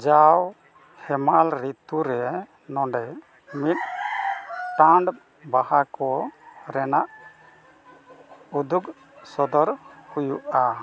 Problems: constant background noise